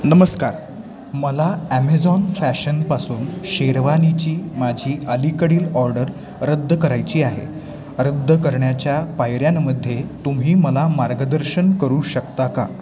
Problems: constant background noise, continuous background conversations, echo